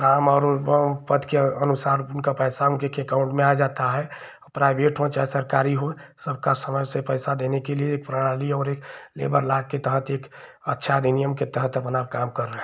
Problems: constant background noise